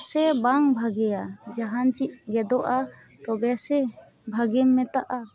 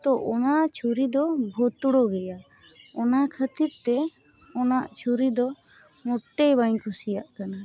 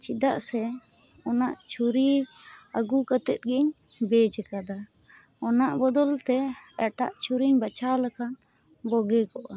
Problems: background sounds at intervals